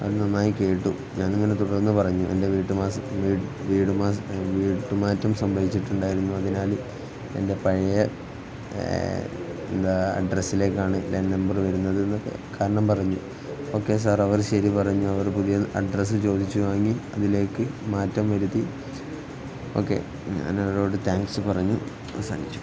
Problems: constant background noise